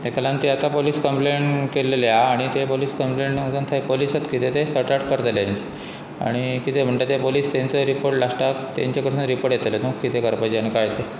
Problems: constant background noise